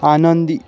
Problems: none marked